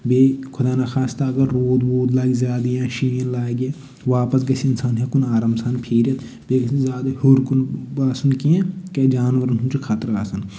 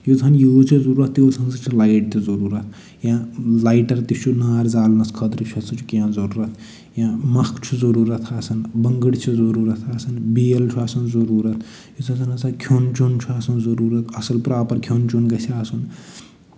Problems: none marked